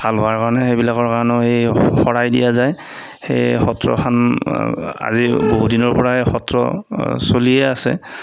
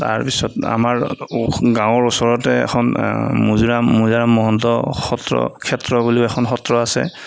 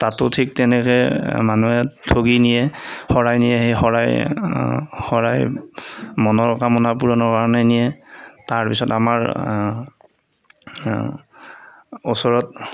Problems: none marked